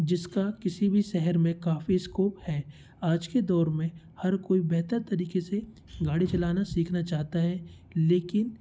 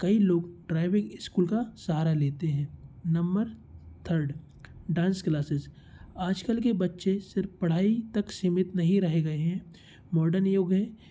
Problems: constant background noise